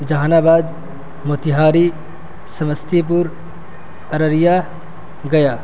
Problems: constant background noise